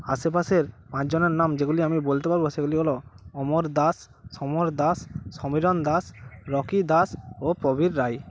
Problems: constant background noise